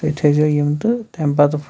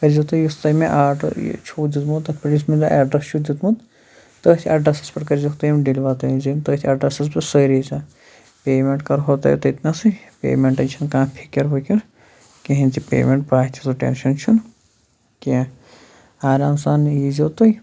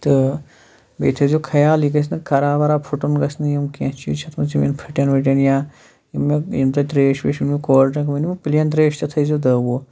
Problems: none marked